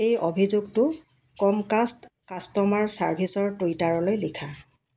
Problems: none marked